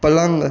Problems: constant background noise